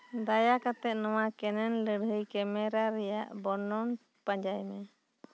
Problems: none marked